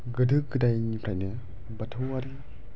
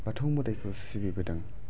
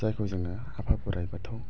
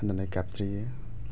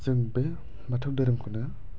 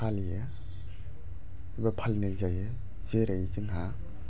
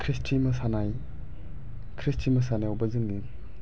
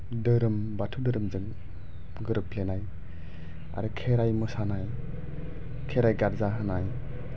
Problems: low volume